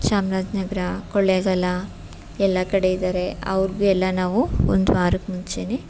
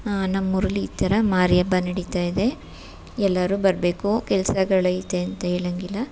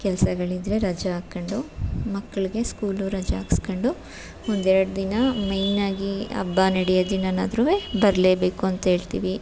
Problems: none marked